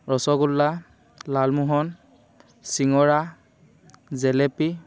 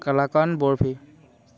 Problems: constant background noise